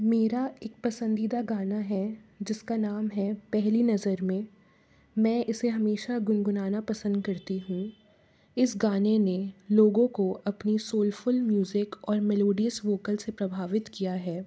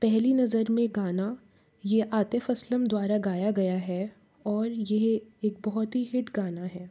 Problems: background sounds at intervals